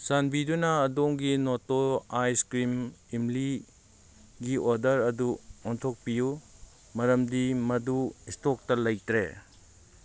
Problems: none marked